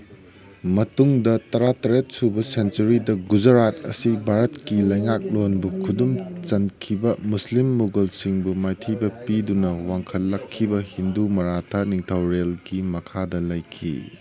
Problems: background conversations at intervals